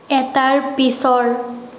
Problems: constant background noise